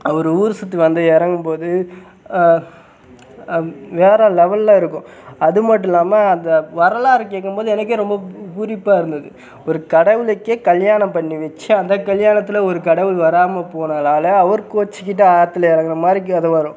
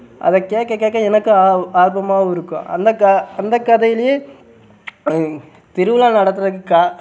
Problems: background sounds at intervals